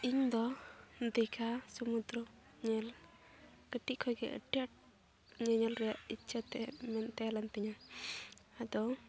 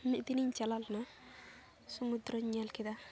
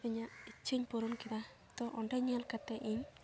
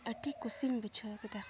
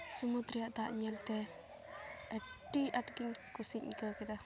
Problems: background sounds at intervals